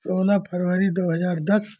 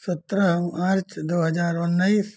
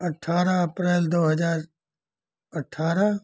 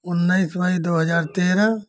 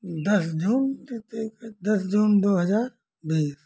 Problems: none marked